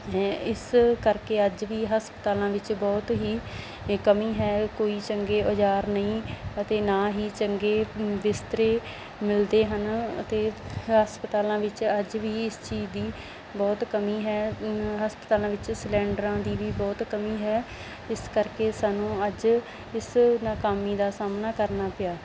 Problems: none marked